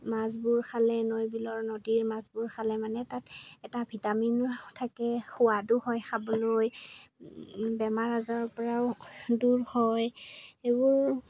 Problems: background sounds at intervals